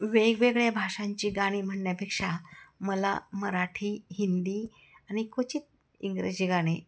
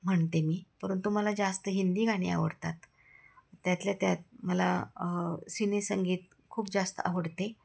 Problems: none marked